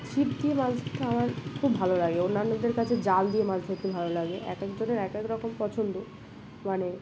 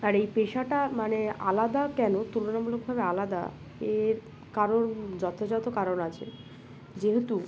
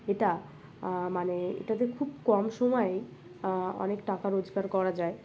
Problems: none marked